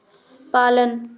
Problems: background sounds at intervals